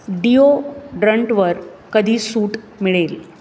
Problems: constant background noise, background conversations at intervals